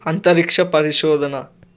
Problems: constant background noise